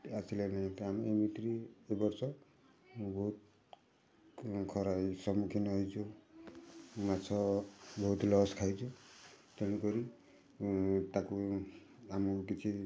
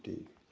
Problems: constant background noise